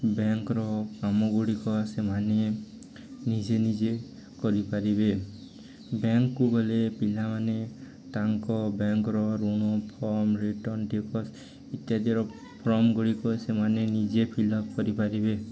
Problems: constant background noise, continuous background conversations